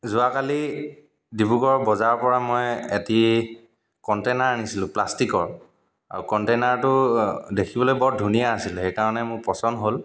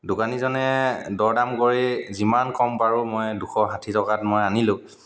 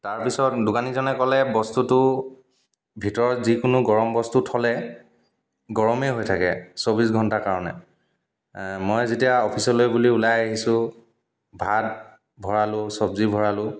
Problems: background sounds at intervals, echo